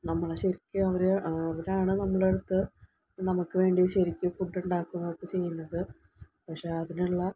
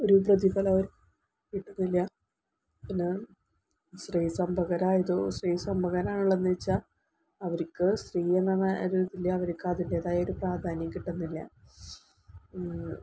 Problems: low volume